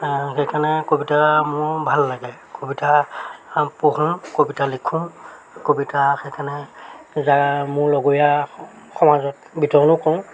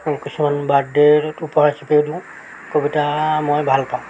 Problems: constant background noise